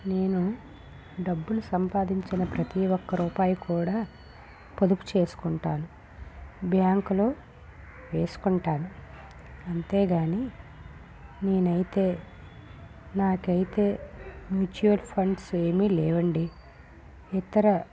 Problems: background sounds at intervals, low volume